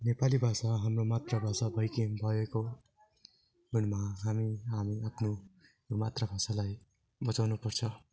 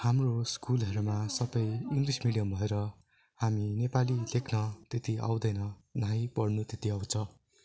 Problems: continuous background conversations